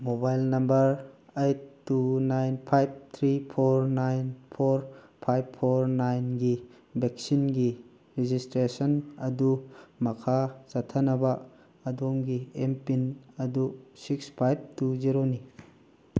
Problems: background sounds at intervals